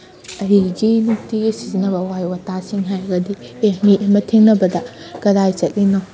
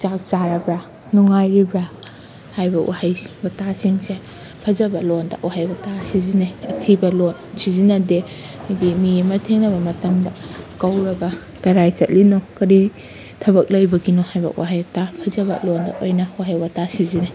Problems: constant background noise